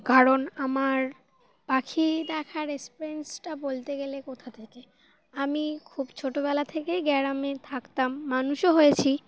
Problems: none marked